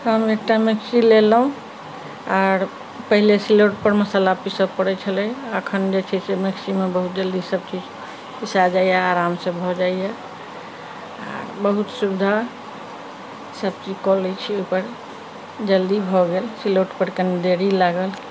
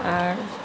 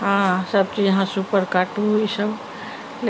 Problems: none marked